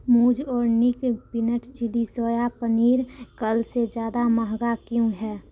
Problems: constant background noise